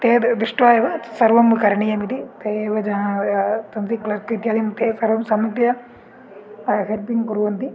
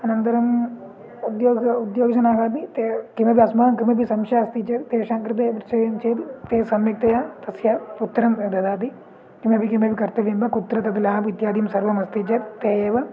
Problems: background sounds at intervals